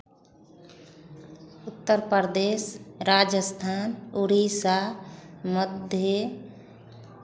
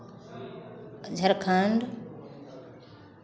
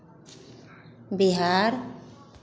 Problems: constant background noise, continuous background conversations